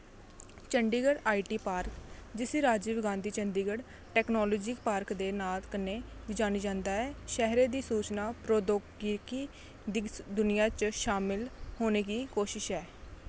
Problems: constant background noise